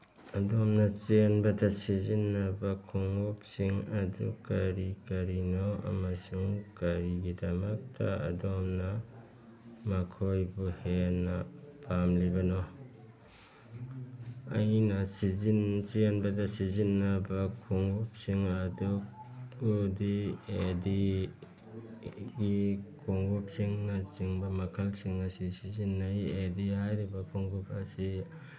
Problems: background sounds at intervals